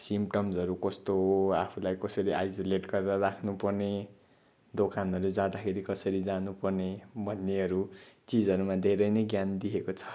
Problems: background sounds at intervals